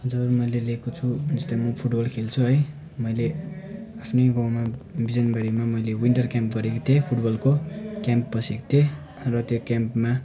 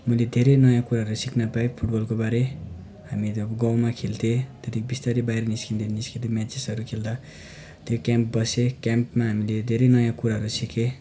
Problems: constant background noise